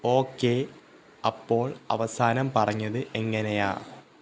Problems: none marked